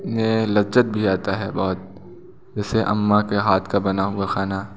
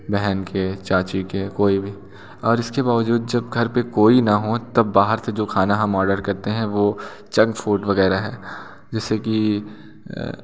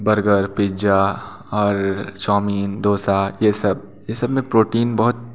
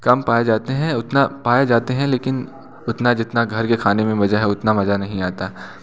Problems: none marked